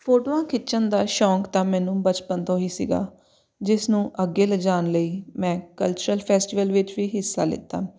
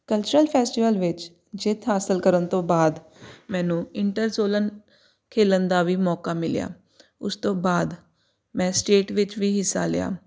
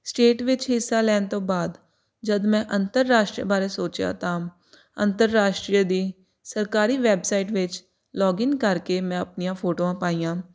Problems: none marked